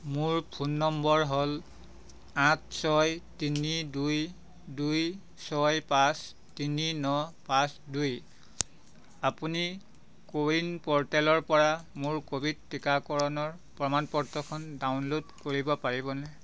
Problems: constant background noise